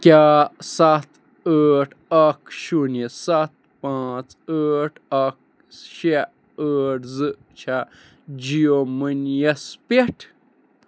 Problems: none marked